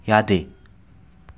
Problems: constant background noise